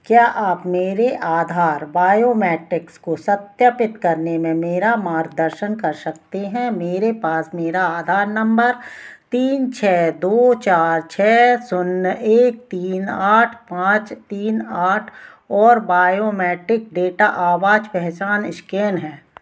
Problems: none marked